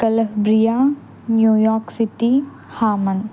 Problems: constant background noise